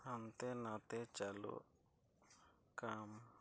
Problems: low volume